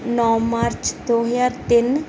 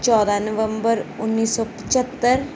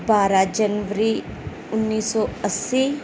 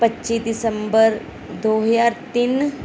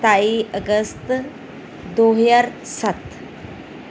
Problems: background sounds at intervals